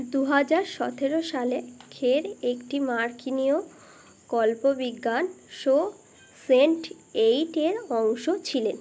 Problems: constant background noise